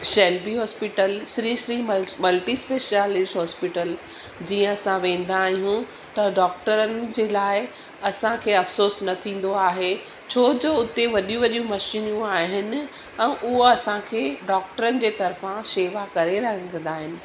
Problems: constant background noise